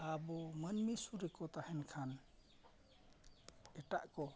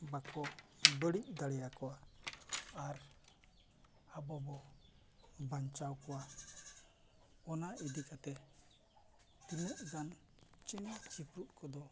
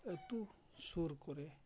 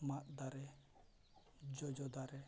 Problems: low volume